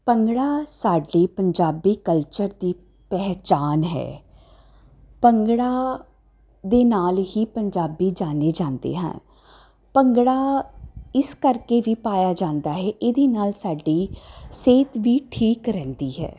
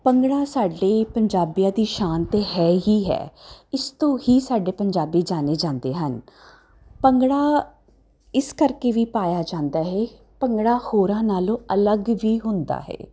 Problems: constant background noise